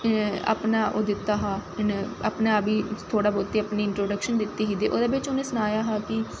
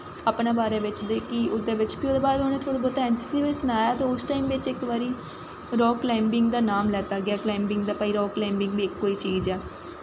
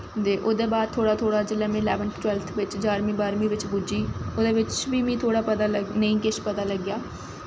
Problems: none marked